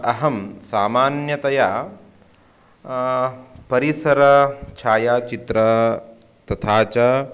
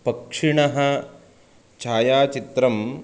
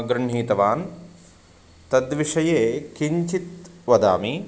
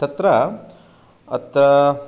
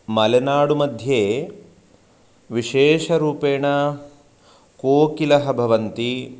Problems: constant background noise